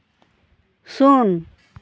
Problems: none marked